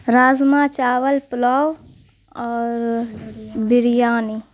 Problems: constant background noise